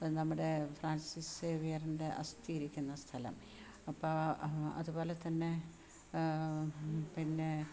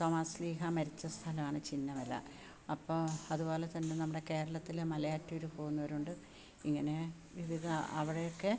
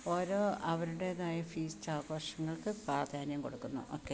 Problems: background sounds at intervals